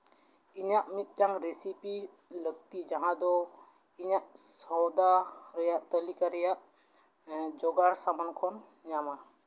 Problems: background sounds at intervals, echo